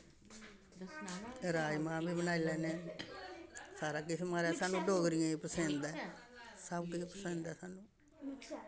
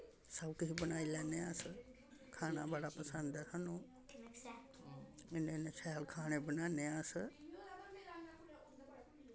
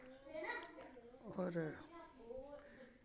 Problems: none marked